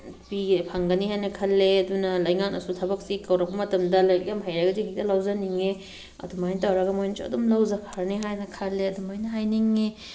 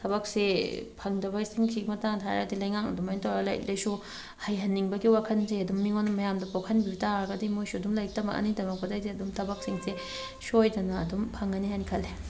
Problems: background sounds at intervals